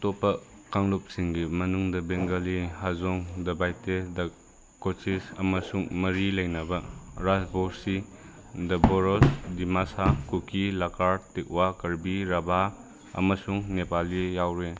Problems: none marked